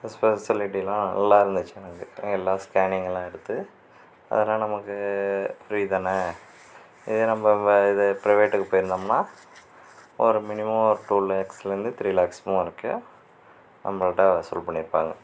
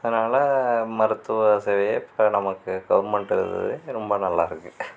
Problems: background sounds at intervals